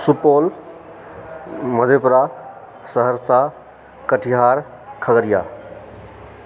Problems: background sounds at intervals